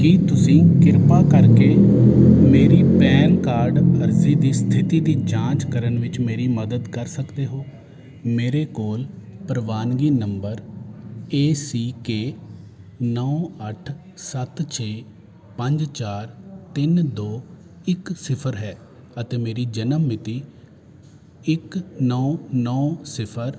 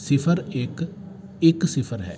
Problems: constant background noise